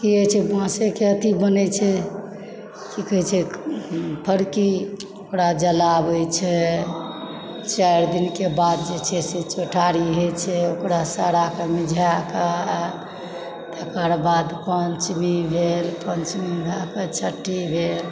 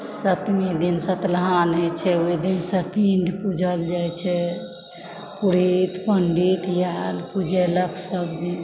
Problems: background sounds at intervals